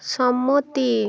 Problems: constant background noise